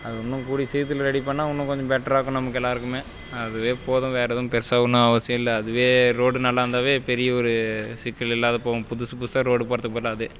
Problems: background sounds at intervals